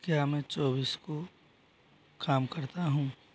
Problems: none marked